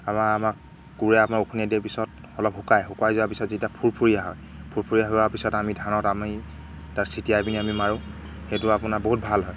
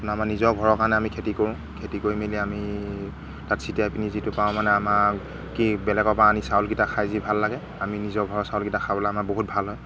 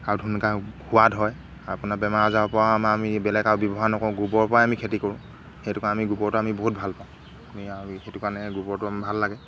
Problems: none marked